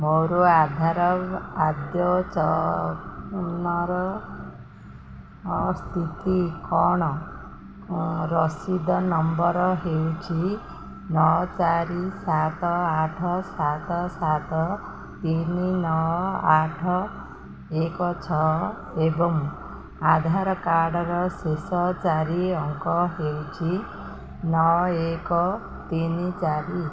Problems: constant background noise